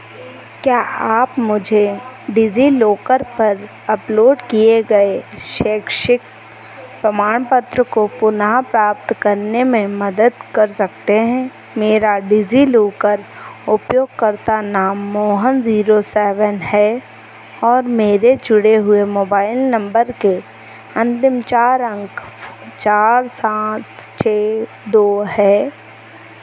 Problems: constant background noise